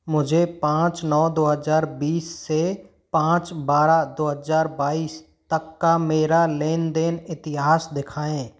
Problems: none marked